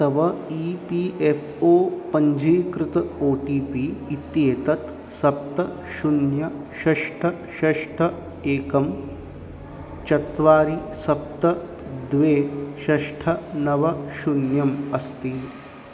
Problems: constant background noise